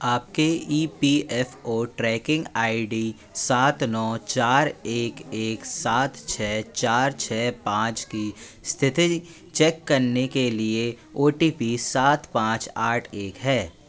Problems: constant background noise, background conversations at intervals